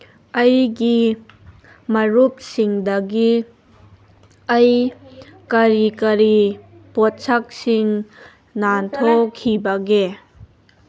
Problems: background conversations at intervals